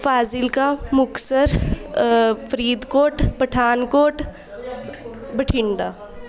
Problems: continuous background conversations